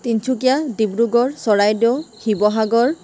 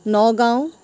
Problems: constant background noise, background conversations at intervals